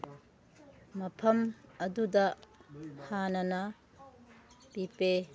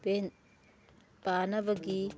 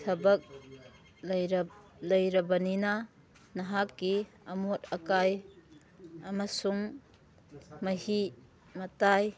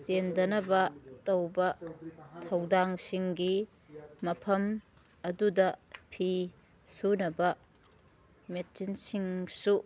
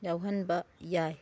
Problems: background sounds at intervals, background conversations at intervals